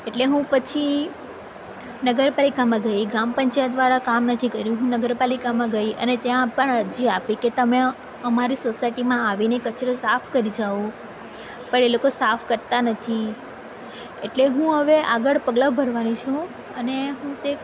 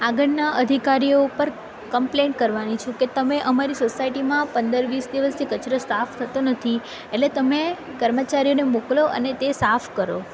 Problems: none marked